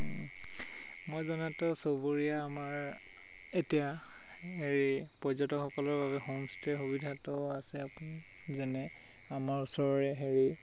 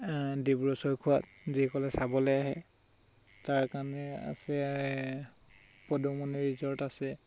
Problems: constant background noise